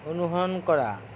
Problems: none marked